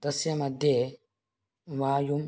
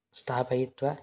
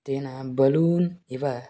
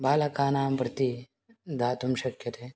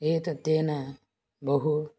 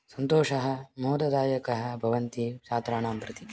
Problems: none marked